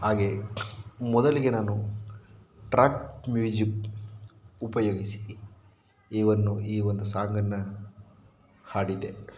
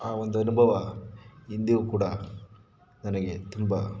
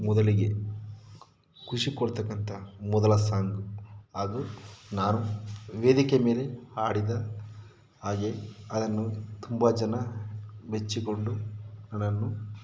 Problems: background sounds at intervals